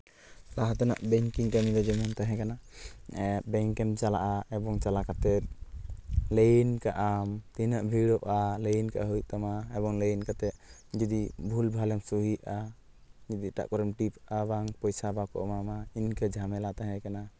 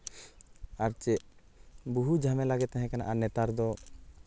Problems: none marked